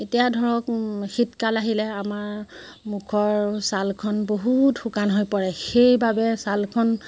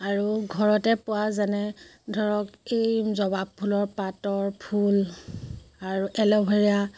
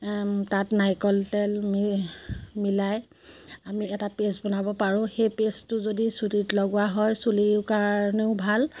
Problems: constant background noise